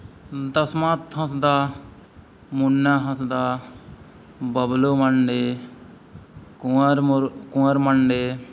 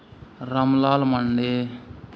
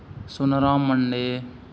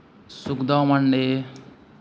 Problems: none marked